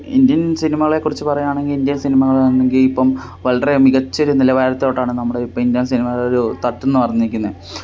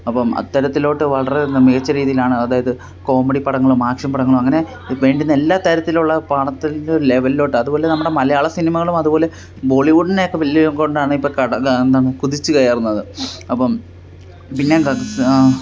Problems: constant background noise